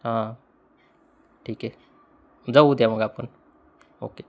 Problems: constant background noise